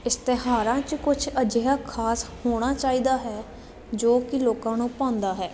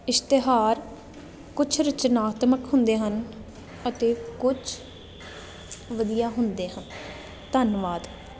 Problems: none marked